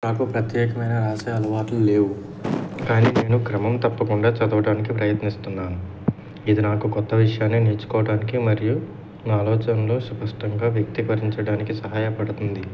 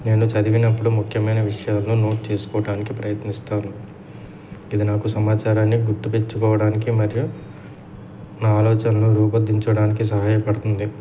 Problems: none marked